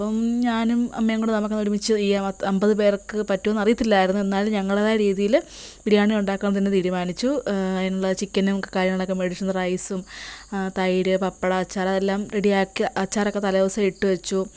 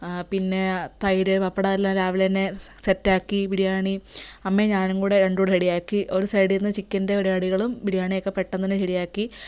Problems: constant background noise